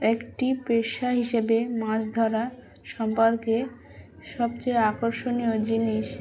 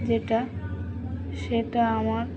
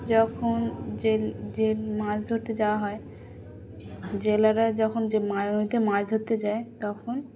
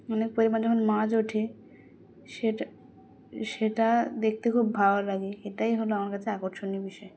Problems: constant background noise, continuous background conversations